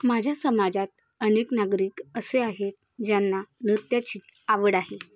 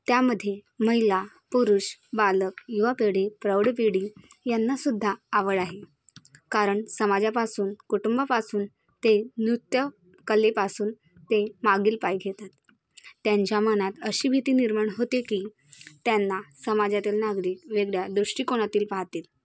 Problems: none marked